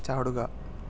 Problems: low volume